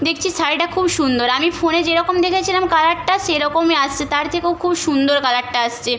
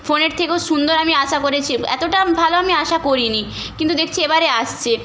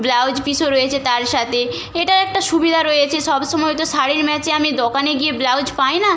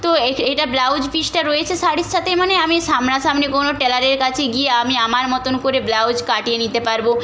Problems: background sounds at intervals